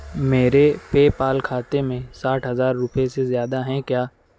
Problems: constant background noise